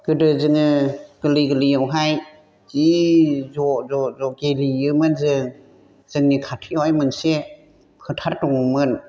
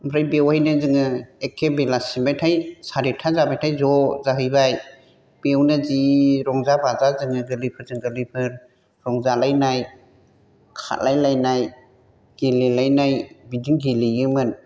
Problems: constant background noise